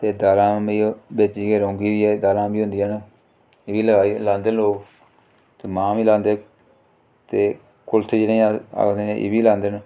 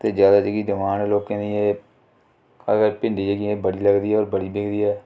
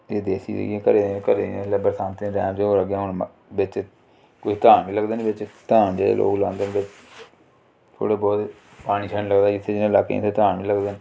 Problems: none marked